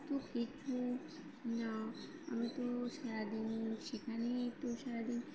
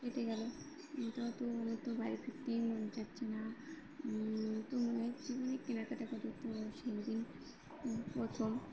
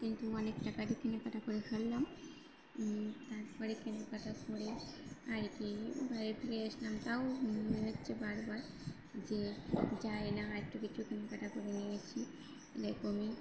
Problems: constant background noise